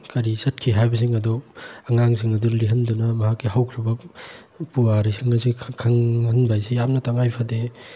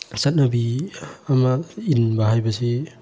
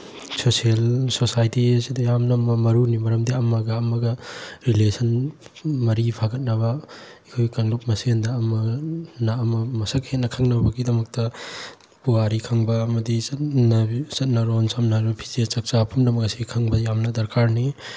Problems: background sounds at intervals